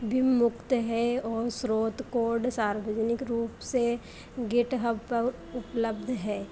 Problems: constant background noise